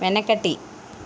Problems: constant background noise